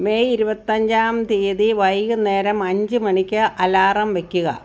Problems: none marked